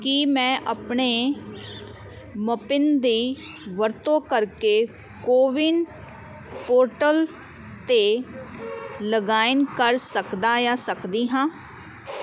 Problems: constant background noise